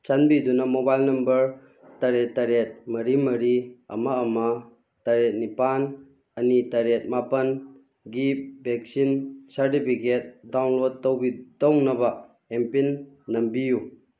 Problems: none marked